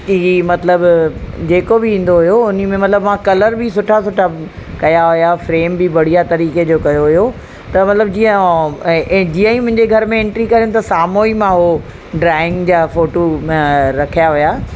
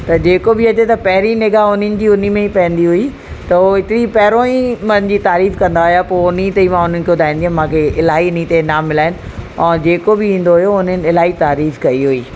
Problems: constant background noise, echo